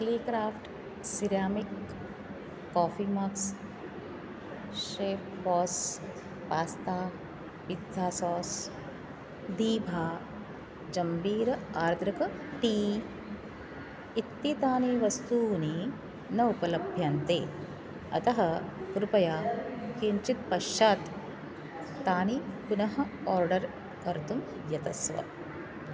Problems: none marked